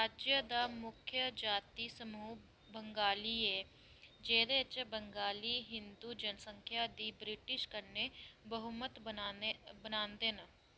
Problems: low volume